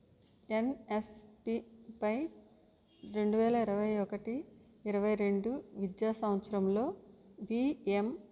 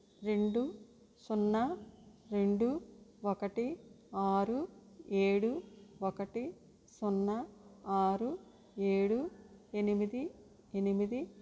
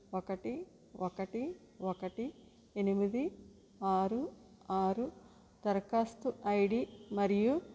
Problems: low volume